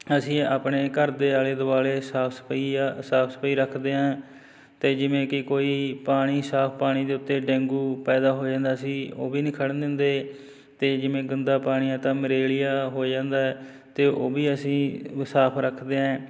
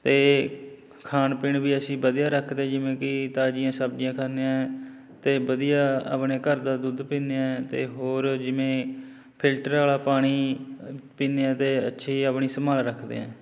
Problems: background sounds at intervals